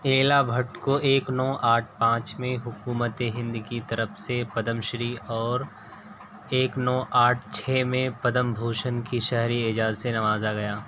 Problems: constant background noise